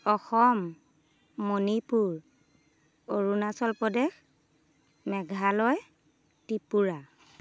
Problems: background conversations at intervals